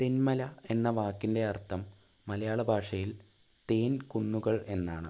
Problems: constant background noise, low volume